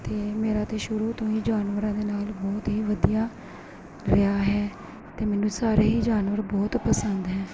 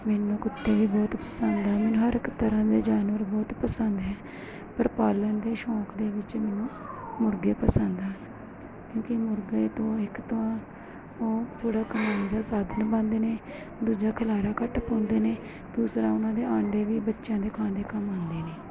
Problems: constant background noise